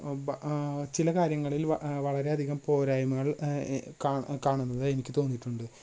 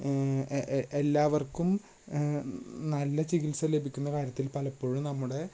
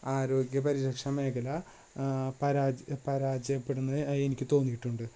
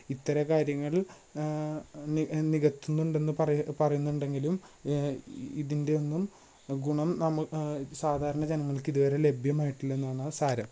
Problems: low volume